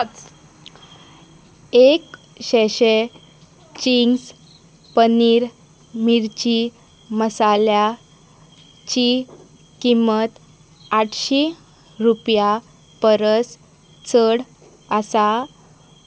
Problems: background sounds at intervals